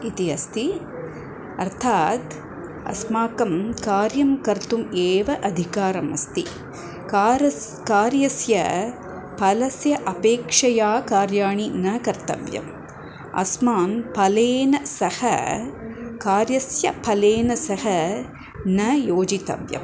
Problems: none marked